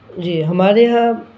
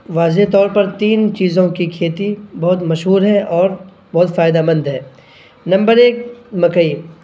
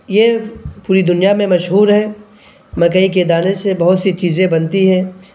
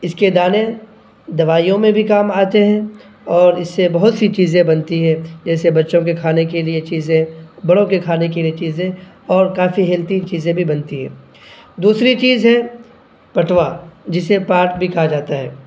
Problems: none marked